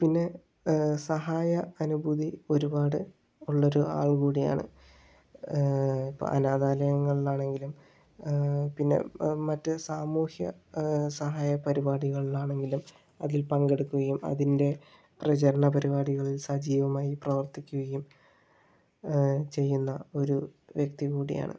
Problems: low volume